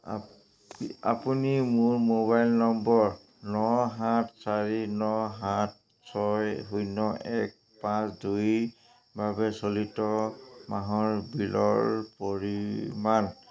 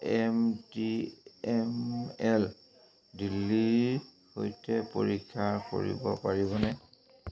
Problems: constant background noise